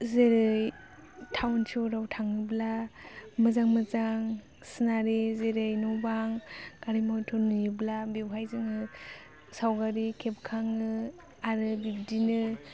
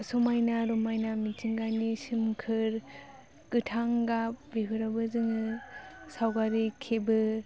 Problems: low volume